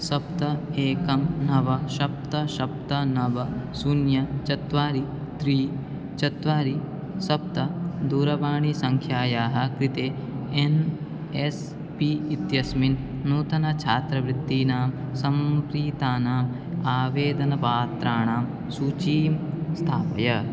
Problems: constant background noise